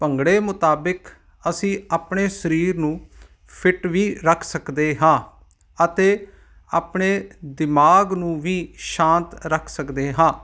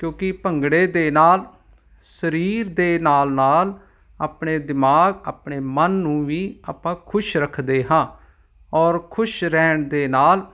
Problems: none marked